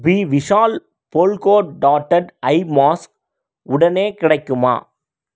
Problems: none marked